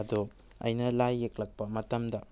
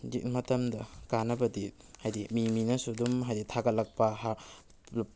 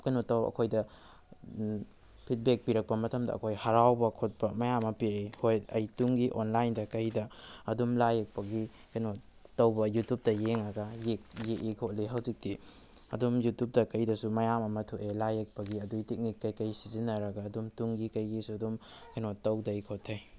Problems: background sounds at intervals